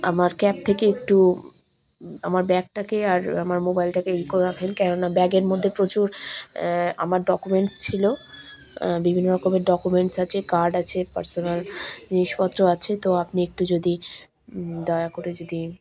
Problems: constant background noise, background conversations at intervals